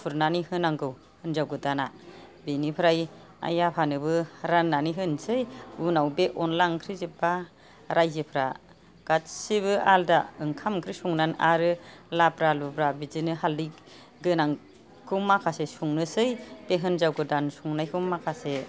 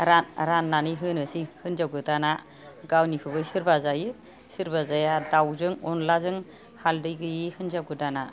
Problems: background conversations at intervals